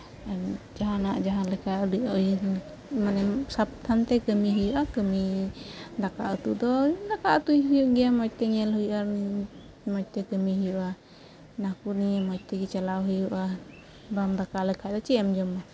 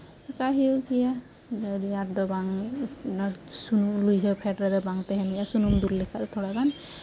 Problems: none marked